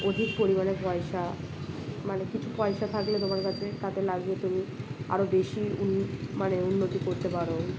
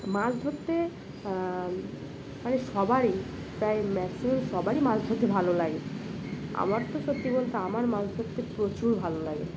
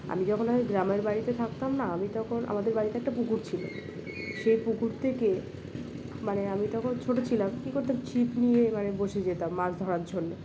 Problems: none marked